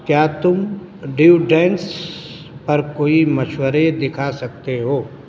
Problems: constant background noise